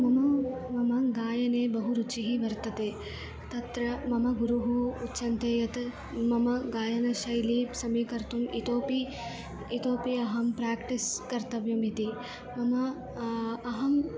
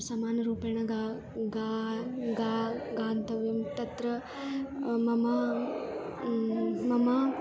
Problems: none marked